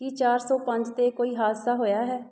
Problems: background conversations at intervals